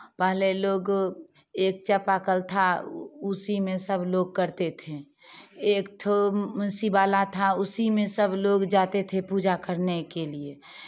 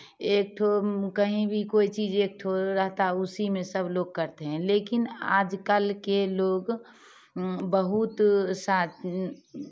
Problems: none marked